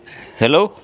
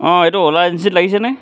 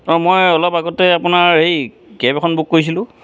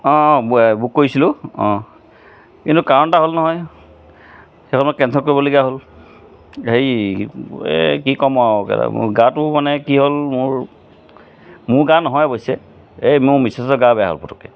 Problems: constant background noise